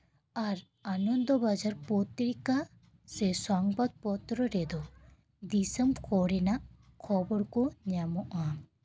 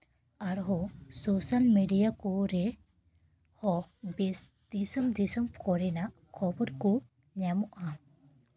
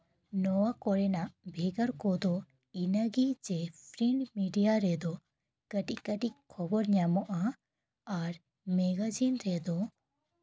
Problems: background conversations at intervals